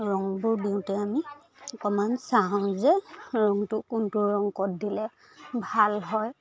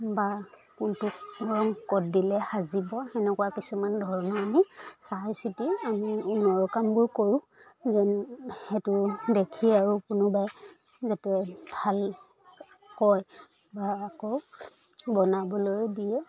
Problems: background conversations at intervals